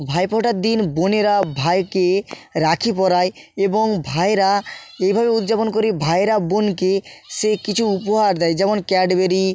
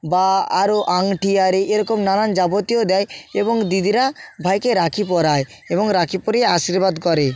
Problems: background sounds at intervals